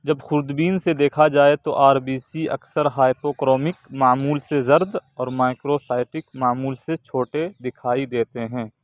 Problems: none marked